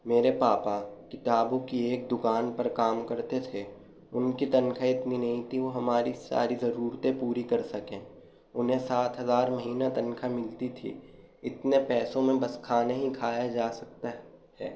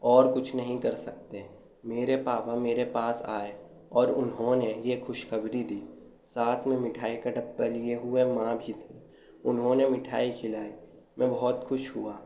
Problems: none marked